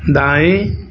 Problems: none marked